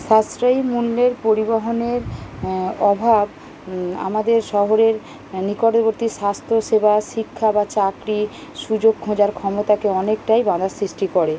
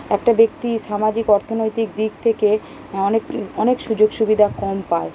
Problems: constant background noise